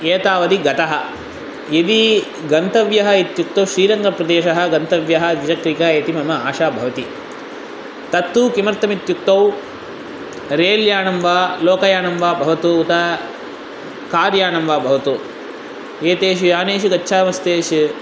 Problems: constant background noise